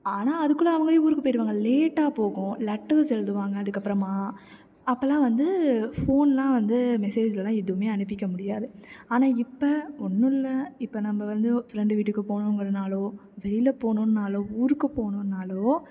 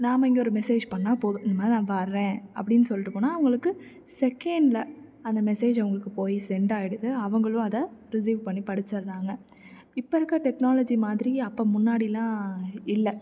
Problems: none marked